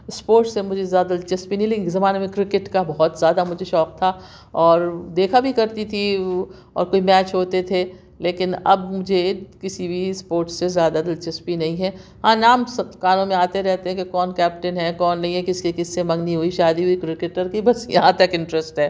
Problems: none marked